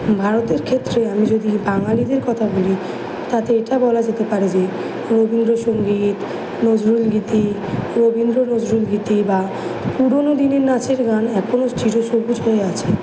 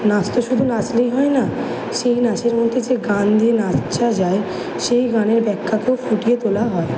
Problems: background sounds at intervals